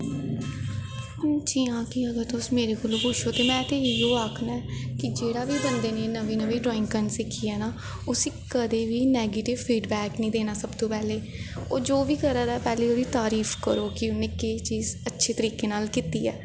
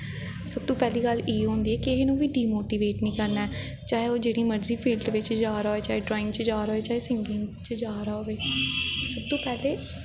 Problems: echo